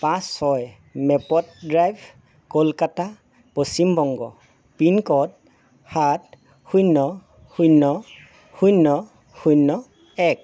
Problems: constant background noise